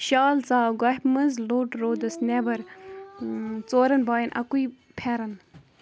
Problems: background conversations at intervals